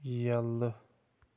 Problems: constant background noise